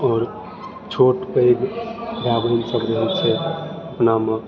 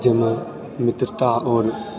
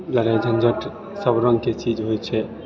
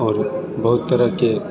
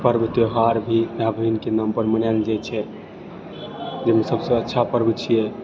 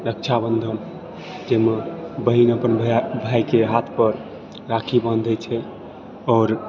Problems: background sounds at intervals, continuous background conversations